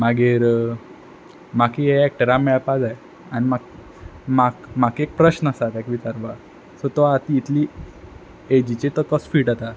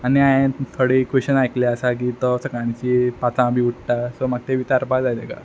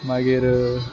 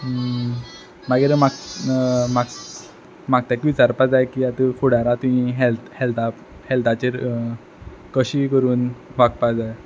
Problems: background sounds at intervals